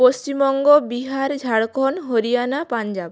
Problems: background sounds at intervals, background conversations at intervals